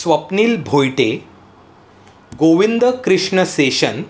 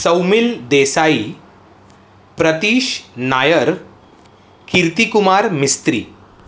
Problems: constant background noise